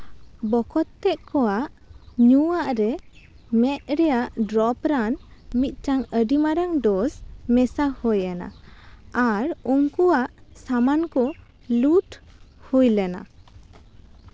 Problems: none marked